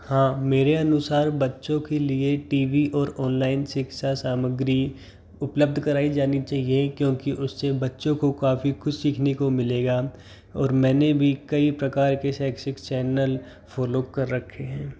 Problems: constant background noise